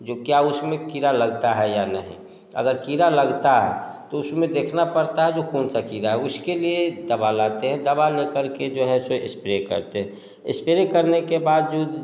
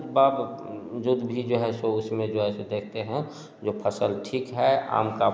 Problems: none marked